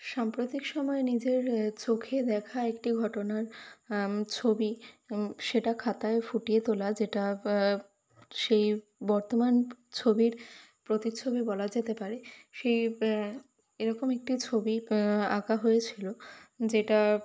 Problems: constant background noise